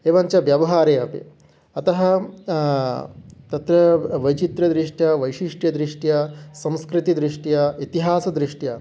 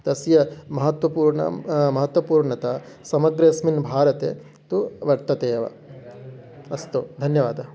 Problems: background sounds at intervals, continuous background conversations